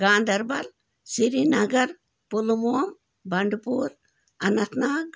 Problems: background sounds at intervals